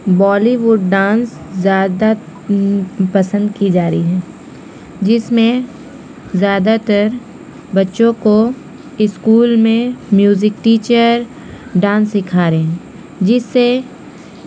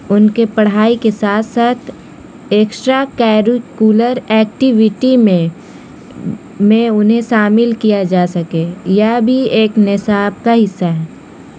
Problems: constant background noise